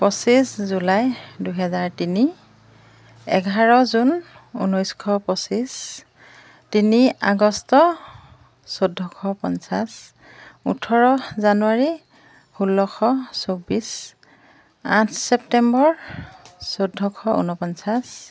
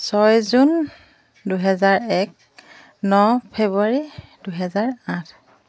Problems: background sounds at intervals